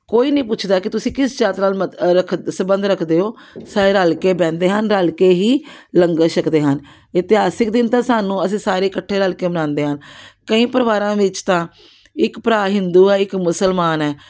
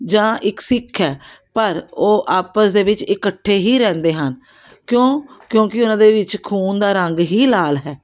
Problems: background sounds at intervals